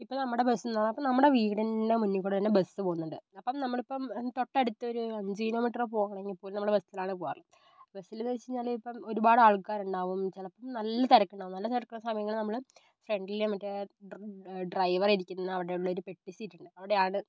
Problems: low volume